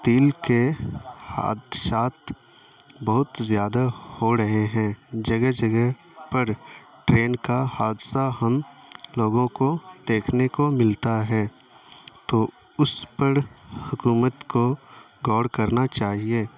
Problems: constant background noise